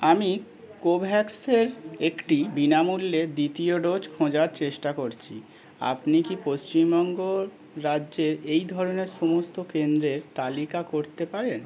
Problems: none marked